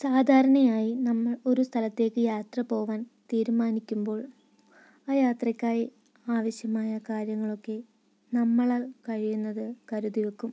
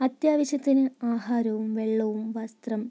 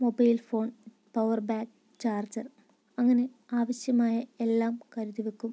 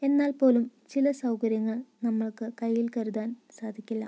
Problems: low volume